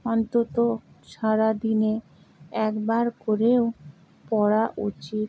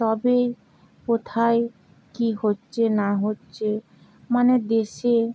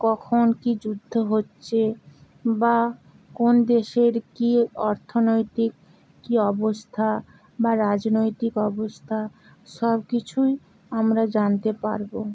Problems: none marked